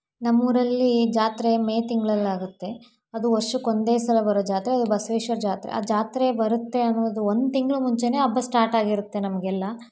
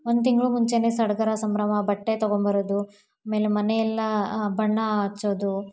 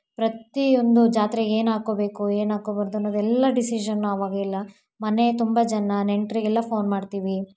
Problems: background sounds at intervals